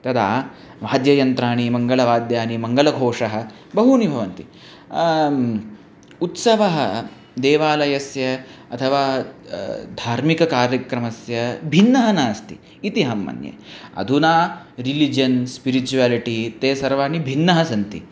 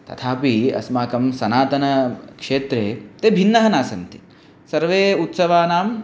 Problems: none marked